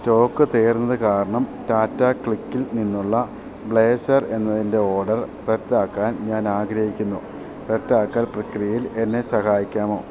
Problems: none marked